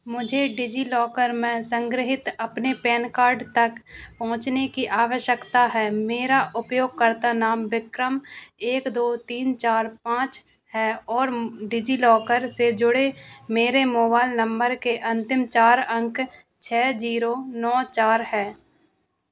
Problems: constant background noise